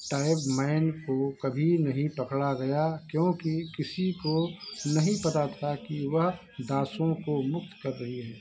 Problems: constant background noise